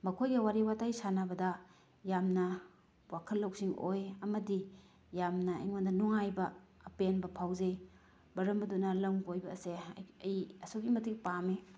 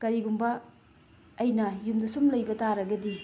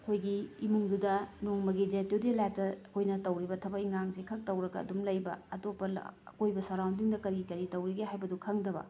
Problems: background sounds at intervals